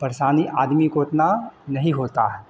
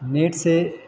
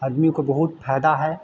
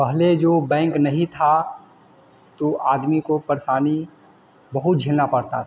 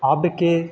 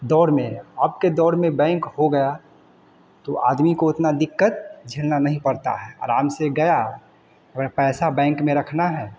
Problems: none marked